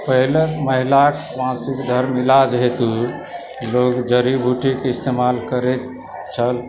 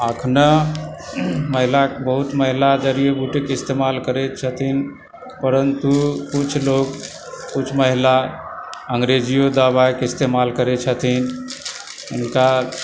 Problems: constant background noise, background conversations at intervals